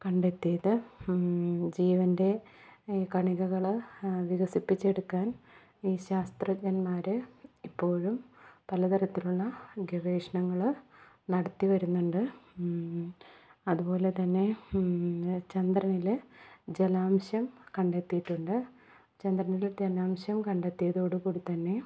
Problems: low volume